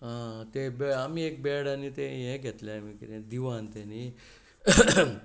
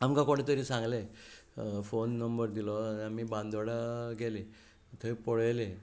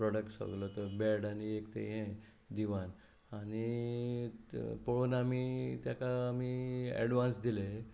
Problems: constant background noise